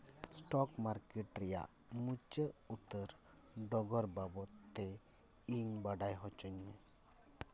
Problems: none marked